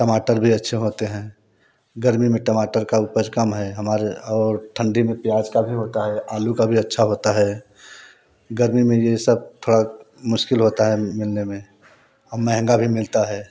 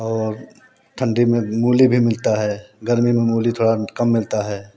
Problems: background sounds at intervals